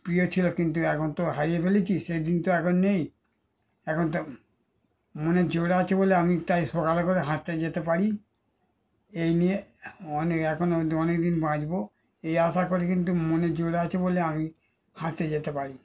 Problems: background sounds at intervals